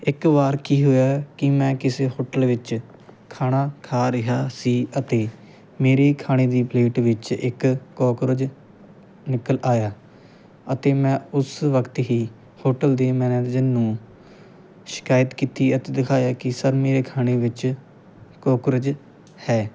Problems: none marked